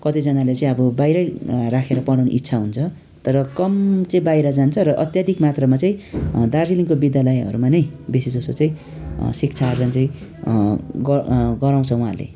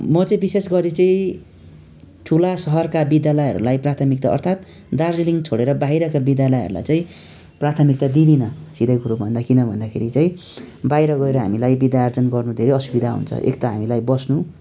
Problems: continuous background conversations